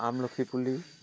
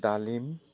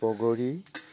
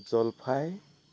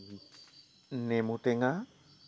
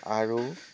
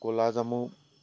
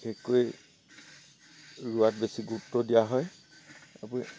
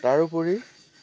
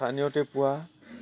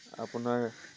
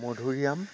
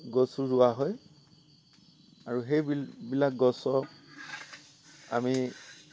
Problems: constant background noise